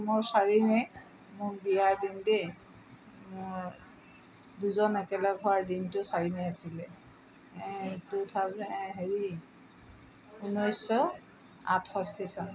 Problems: background sounds at intervals, background conversations at intervals